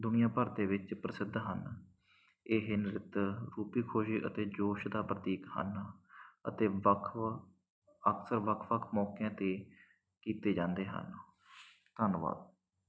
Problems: none marked